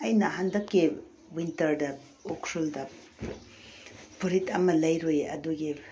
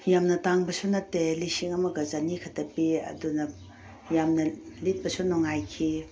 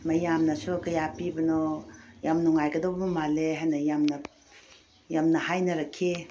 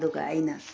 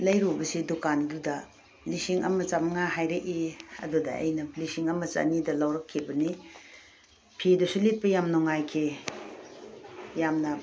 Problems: none marked